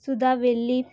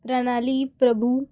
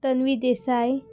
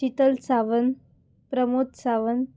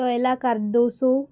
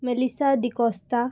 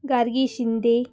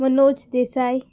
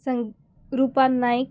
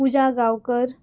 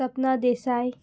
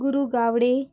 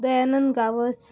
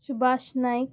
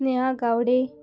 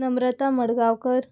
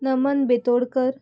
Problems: background sounds at intervals